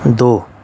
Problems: constant background noise